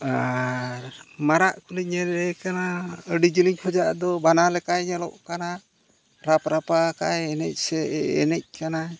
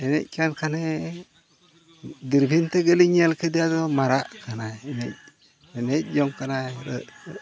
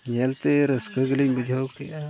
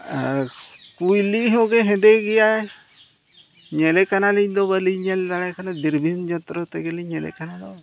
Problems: constant background noise, background conversations at intervals